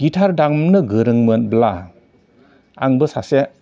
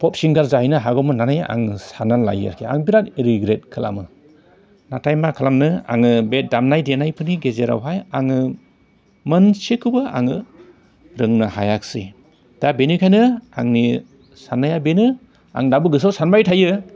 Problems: none marked